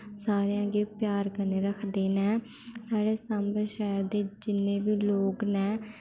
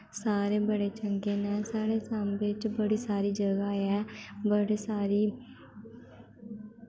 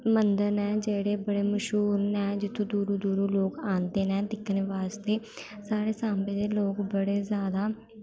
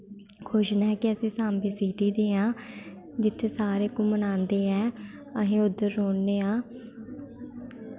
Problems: constant background noise